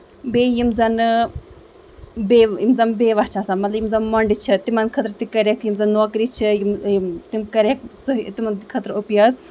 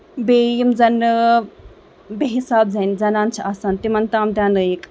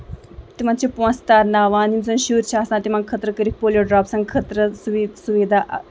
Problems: background sounds at intervals